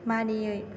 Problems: constant background noise